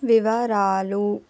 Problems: none marked